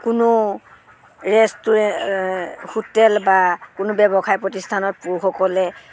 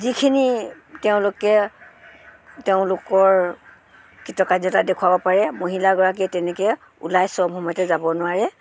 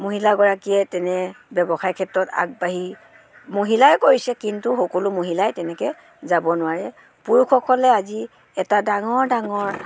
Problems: background sounds at intervals